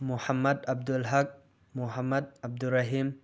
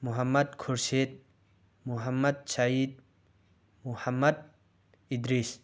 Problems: background sounds at intervals